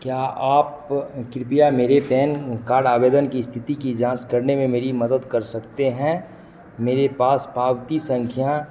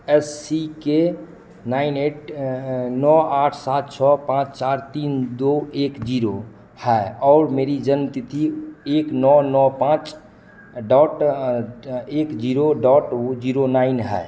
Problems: echo